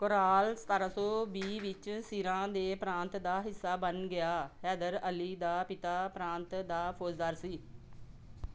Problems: none marked